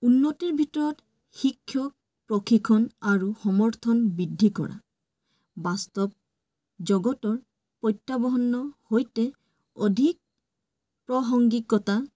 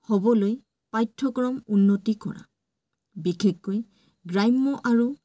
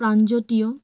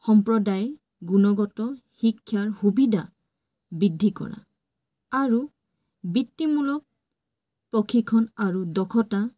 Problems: none marked